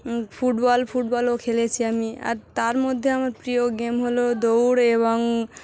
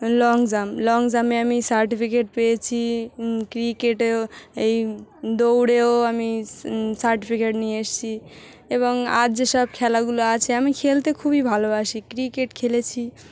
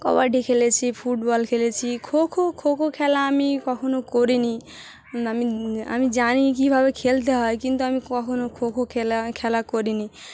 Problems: constant background noise, continuous background conversations